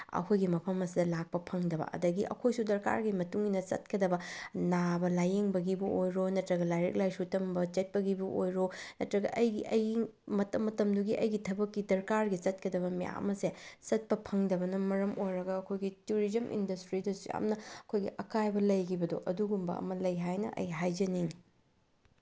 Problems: none marked